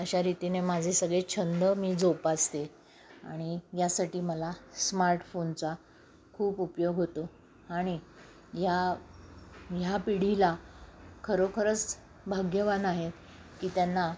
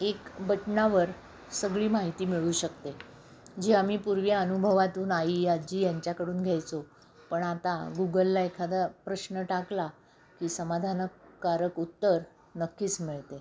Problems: constant background noise